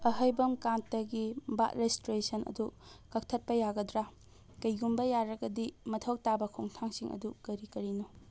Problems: none marked